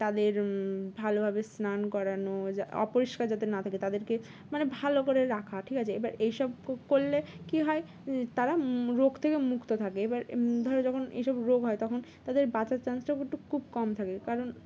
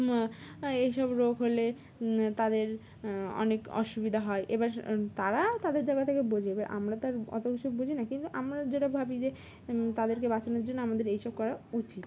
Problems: constant background noise